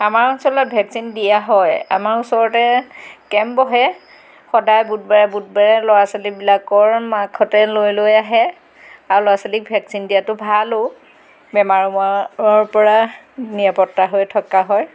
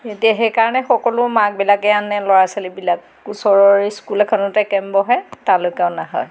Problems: background sounds at intervals